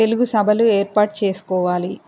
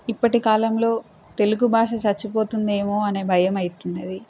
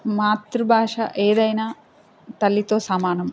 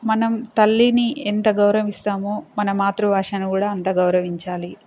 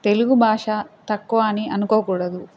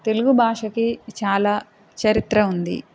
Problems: constant background noise